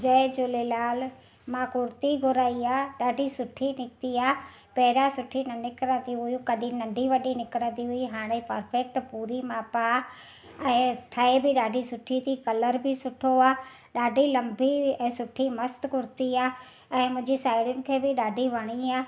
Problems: none marked